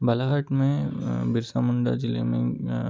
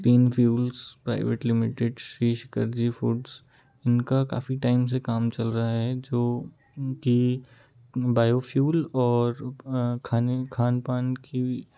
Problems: continuous background conversations, low volume